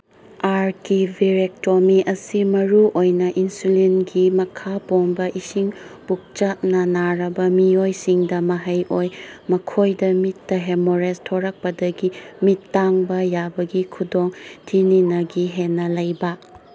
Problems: constant background noise